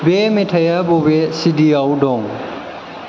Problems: constant background noise